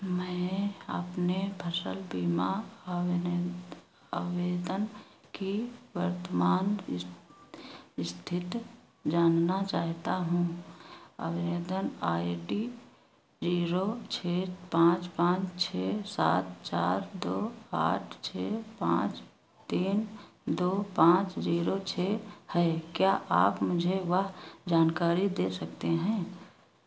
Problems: constant background noise